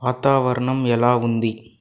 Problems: none marked